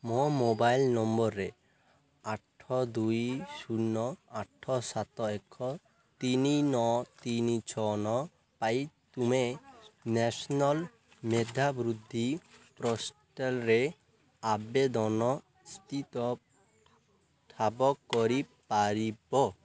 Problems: constant background noise